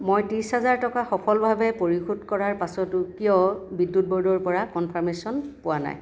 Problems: none marked